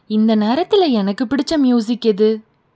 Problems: none marked